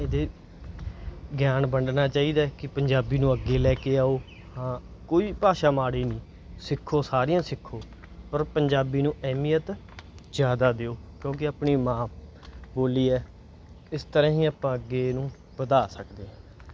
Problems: background sounds at intervals